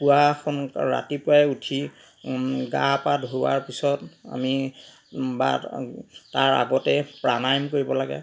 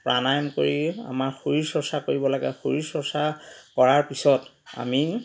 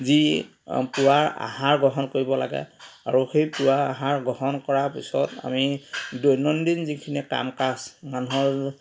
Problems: background sounds at intervals, background conversations at intervals